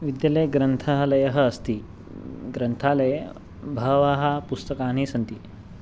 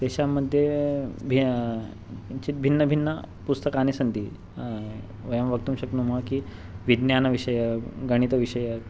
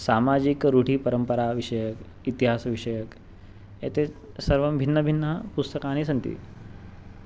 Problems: none marked